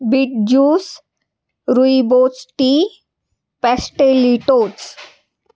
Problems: none marked